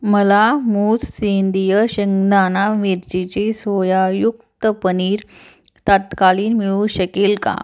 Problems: background sounds at intervals, background conversations at intervals